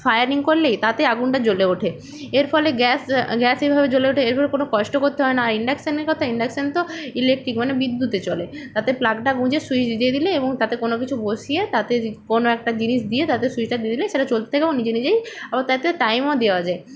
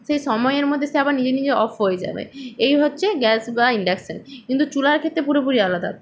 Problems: none marked